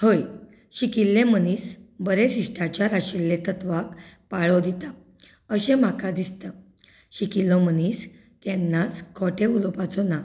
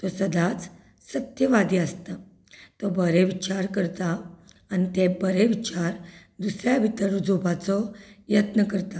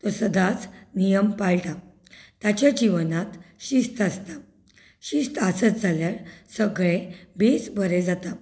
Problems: none marked